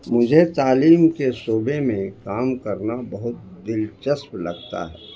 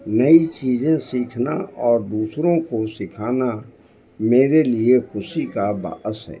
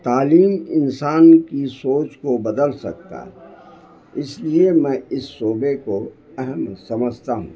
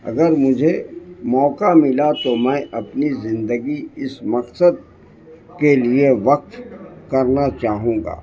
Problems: constant background noise